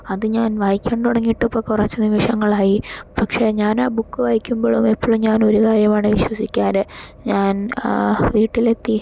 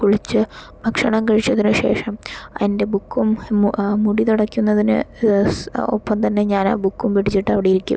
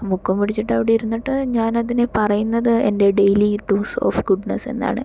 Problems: none marked